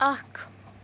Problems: constant background noise